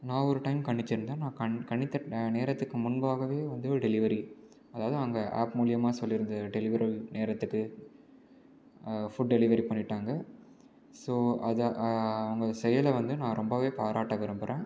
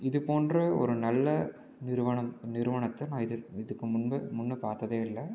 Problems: low volume